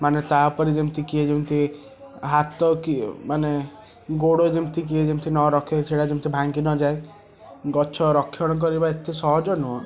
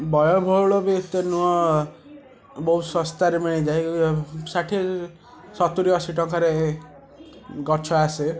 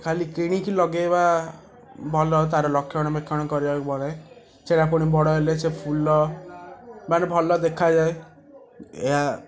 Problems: constant background noise, continuous background conversations